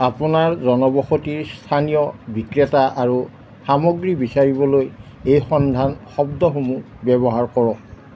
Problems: none marked